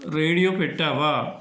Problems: constant background noise